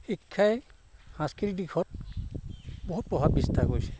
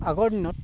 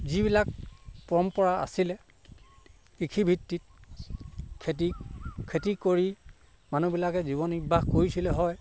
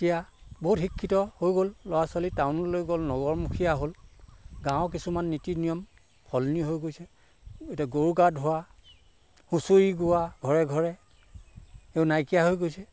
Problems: background sounds at intervals